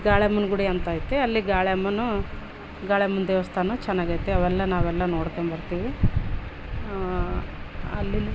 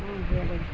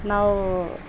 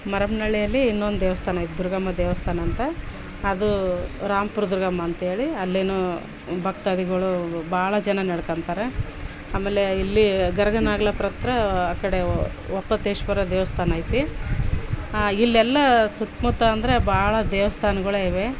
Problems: background sounds at intervals